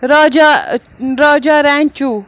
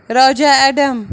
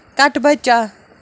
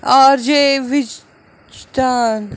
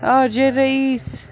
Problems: constant background noise, continuous background conversations